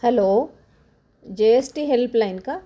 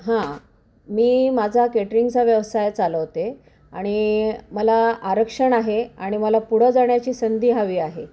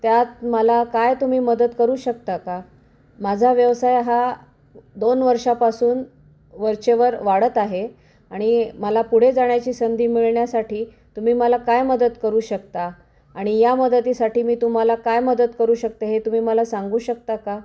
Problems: background sounds at intervals